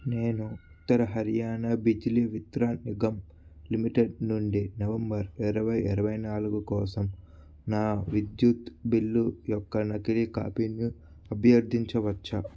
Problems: constant background noise